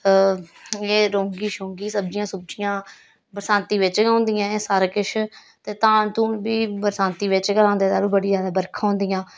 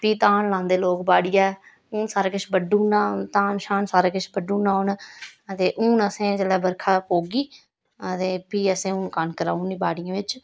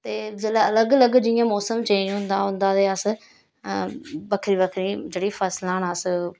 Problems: none marked